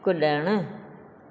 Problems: echo